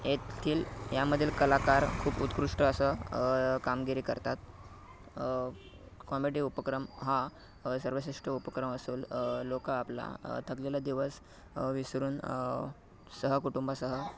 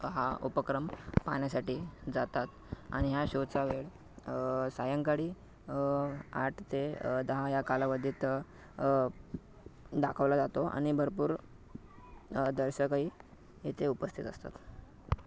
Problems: background sounds at intervals